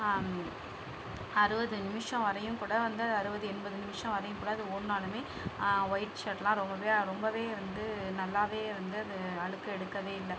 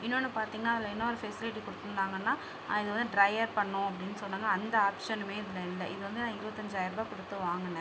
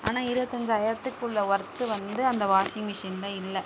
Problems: constant background noise